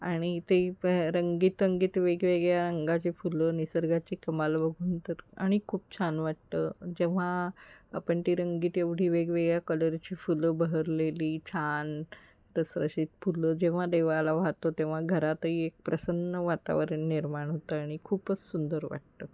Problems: none marked